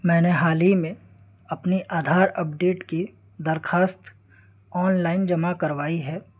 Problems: constant background noise